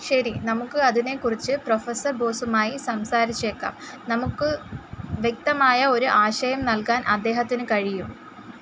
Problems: none marked